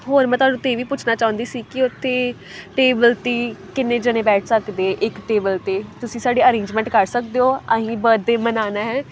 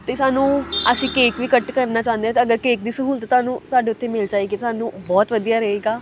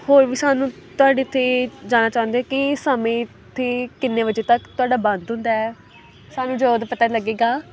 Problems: none marked